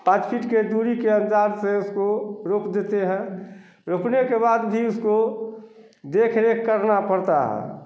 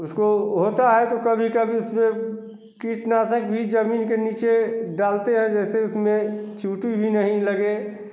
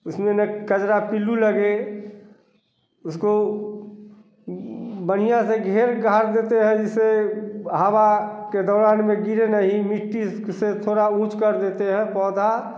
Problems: none marked